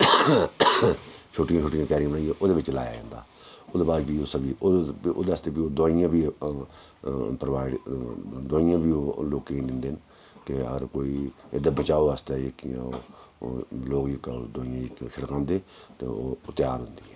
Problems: none marked